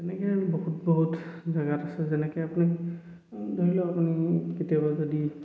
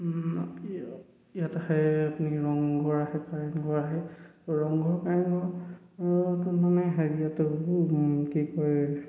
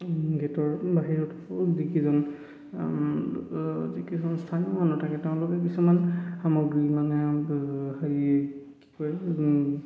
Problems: echo